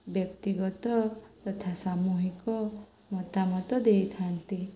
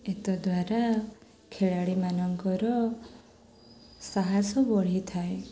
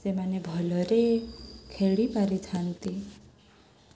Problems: none marked